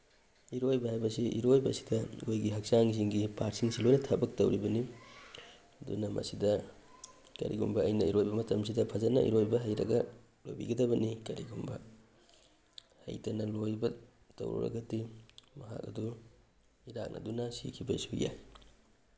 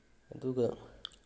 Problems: none marked